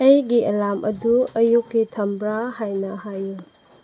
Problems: low volume